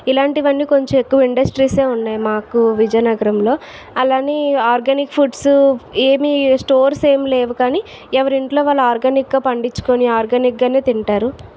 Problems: none marked